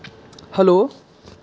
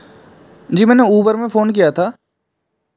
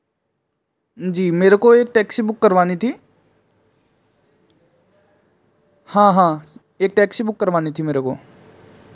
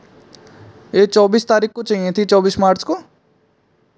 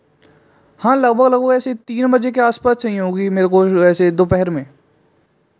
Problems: background sounds at intervals